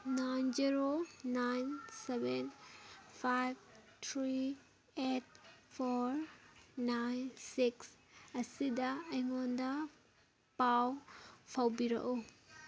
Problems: background sounds at intervals, background conversations at intervals